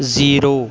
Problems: background sounds at intervals, continuous background conversations